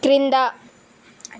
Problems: constant background noise